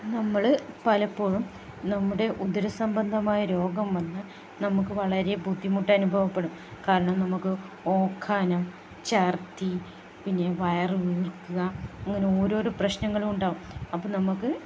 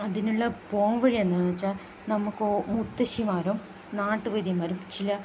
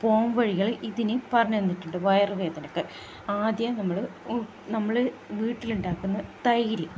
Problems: constant background noise, low volume